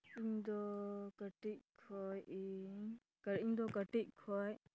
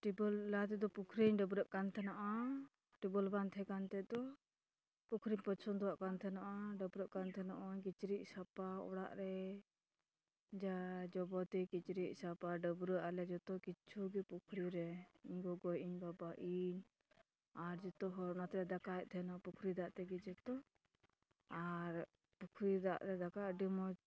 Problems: constant background noise